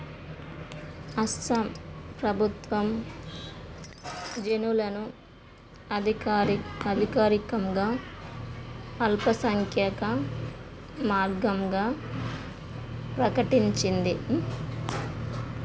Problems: constant background noise